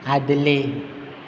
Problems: constant background noise